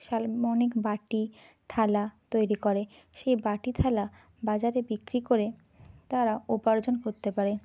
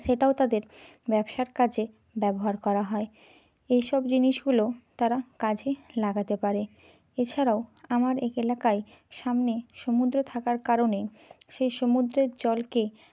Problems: constant background noise